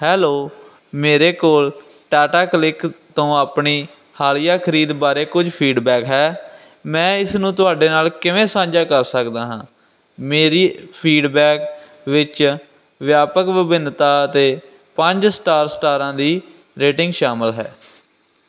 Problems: none marked